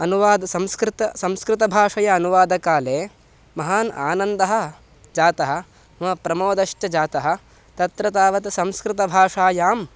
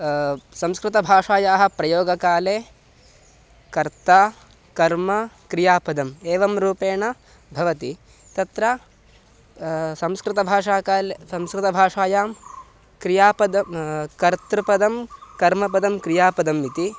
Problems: none marked